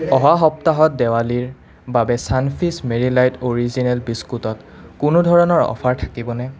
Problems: none marked